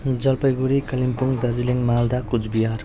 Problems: background sounds at intervals